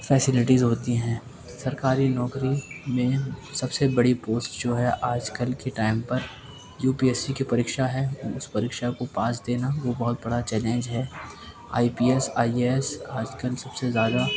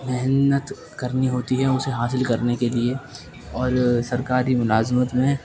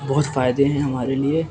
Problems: constant background noise, background conversations at intervals